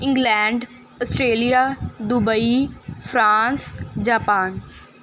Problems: background sounds at intervals